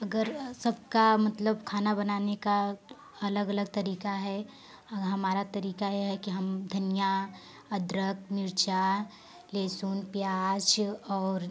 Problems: constant background noise